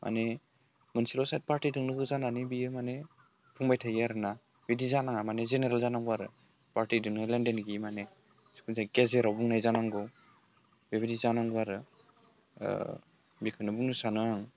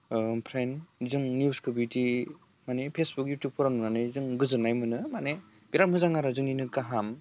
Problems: none marked